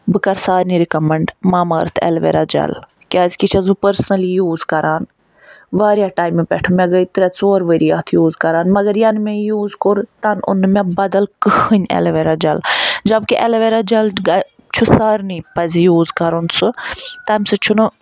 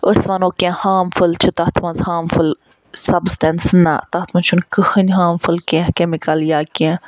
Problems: background sounds at intervals